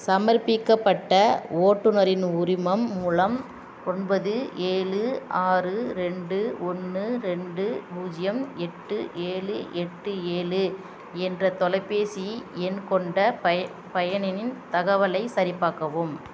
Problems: background sounds at intervals